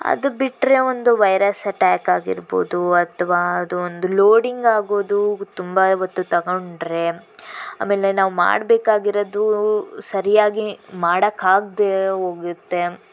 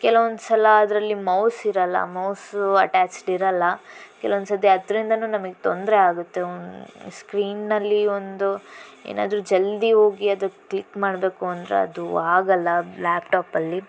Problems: constant background noise